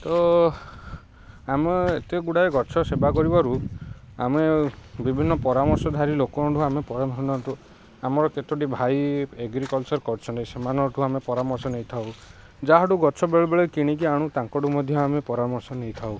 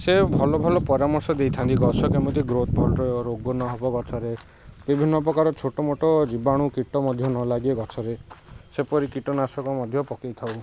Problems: constant background noise